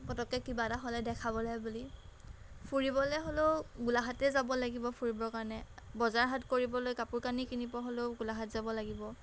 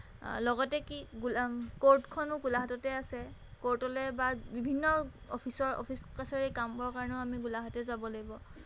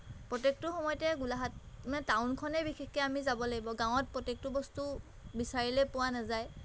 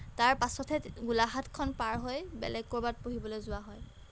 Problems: background sounds at intervals